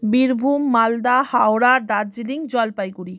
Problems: background sounds at intervals